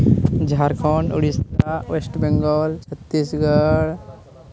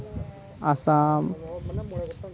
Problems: background sounds at intervals